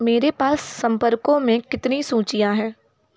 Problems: none marked